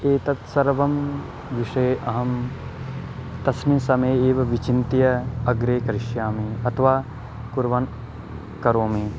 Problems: none marked